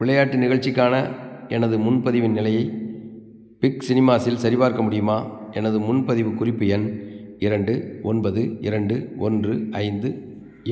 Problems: background sounds at intervals